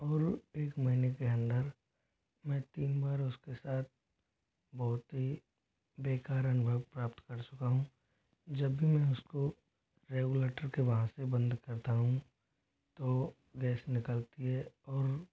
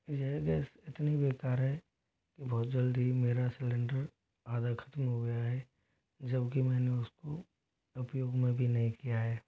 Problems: low volume